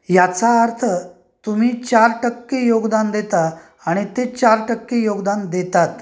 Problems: background sounds at intervals